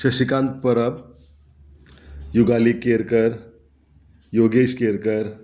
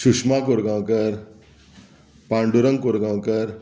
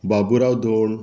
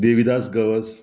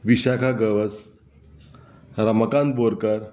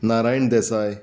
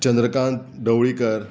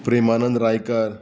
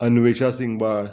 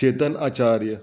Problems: background sounds at intervals